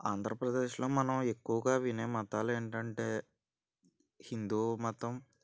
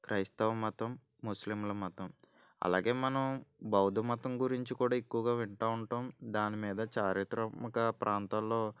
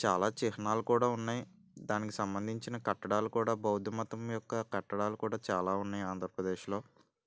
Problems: none marked